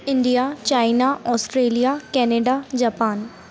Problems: constant background noise